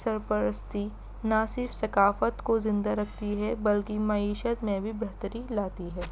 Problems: constant background noise